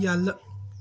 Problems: background sounds at intervals, background conversations at intervals